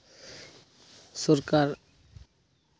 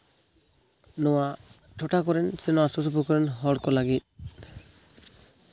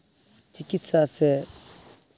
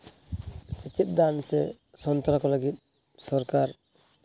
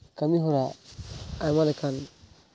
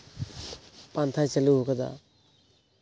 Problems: background sounds at intervals